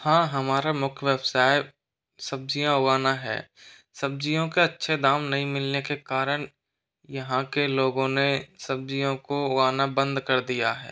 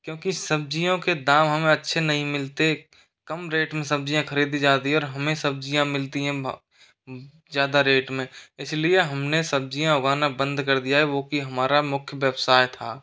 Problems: constant background noise, echo